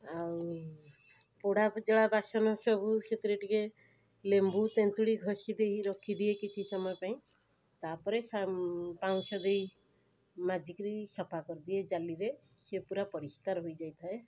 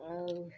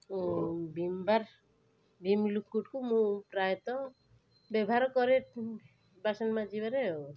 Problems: constant background noise